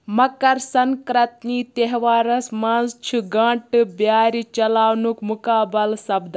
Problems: background sounds at intervals